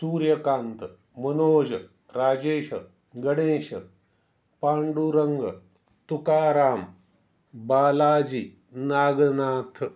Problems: none marked